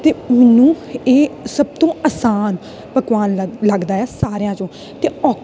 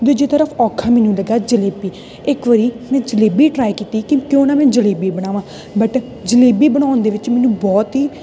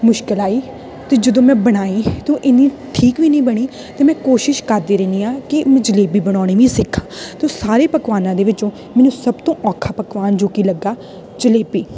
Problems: constant background noise